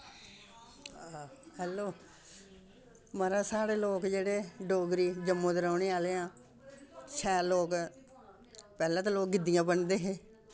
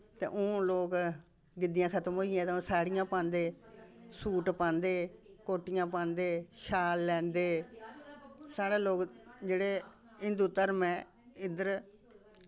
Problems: constant background noise